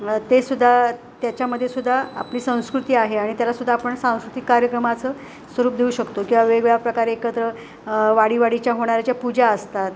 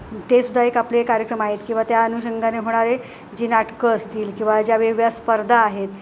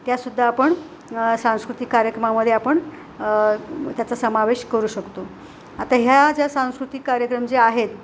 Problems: constant background noise